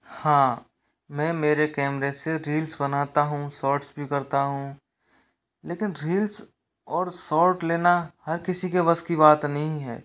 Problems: none marked